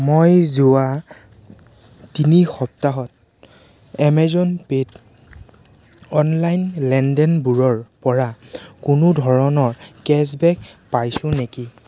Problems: constant background noise